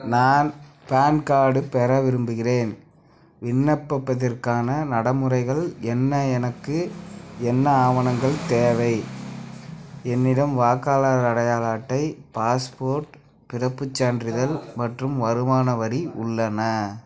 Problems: constant background noise, background conversations at intervals